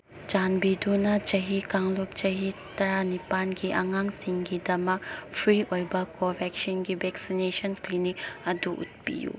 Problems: none marked